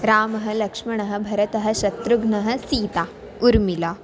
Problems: constant background noise